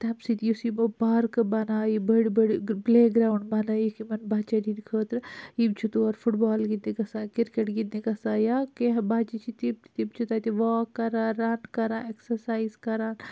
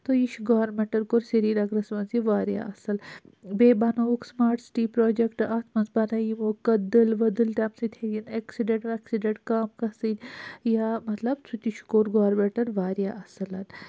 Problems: none marked